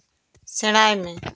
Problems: none marked